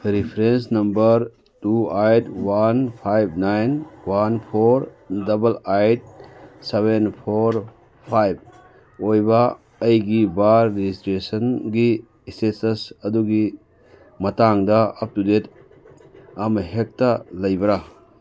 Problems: background sounds at intervals